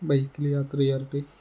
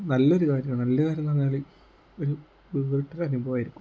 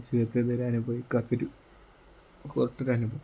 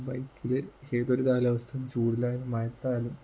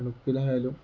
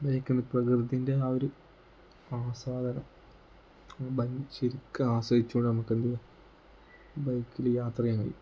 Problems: low volume